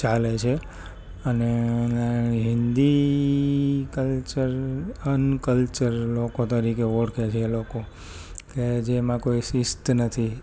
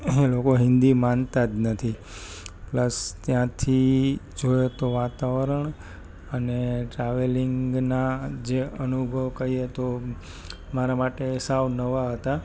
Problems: constant background noise